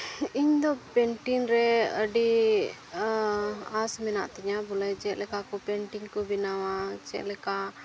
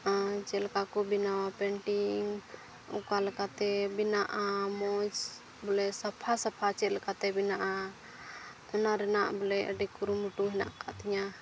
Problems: constant background noise, low volume